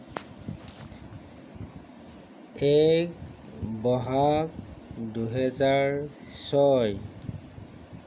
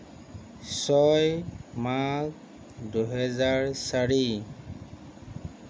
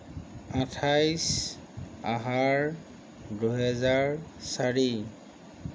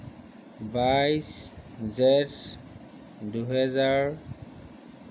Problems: none marked